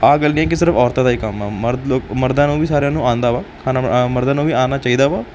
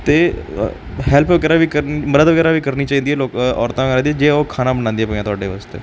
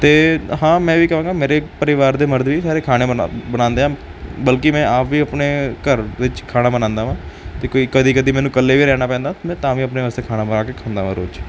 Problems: background sounds at intervals